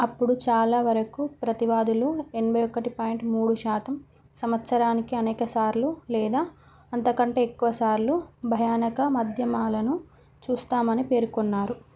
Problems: none marked